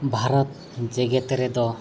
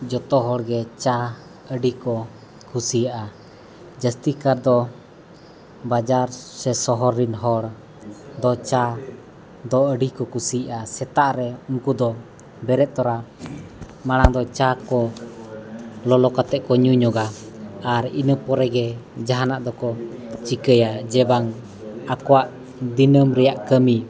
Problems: background sounds at intervals, continuous background conversations